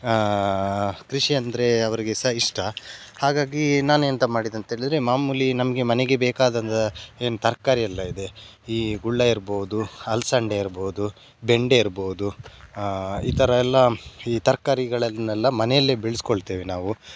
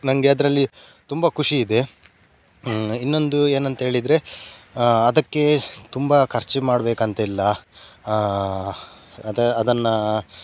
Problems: none marked